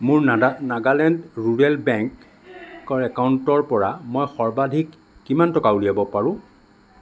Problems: background sounds at intervals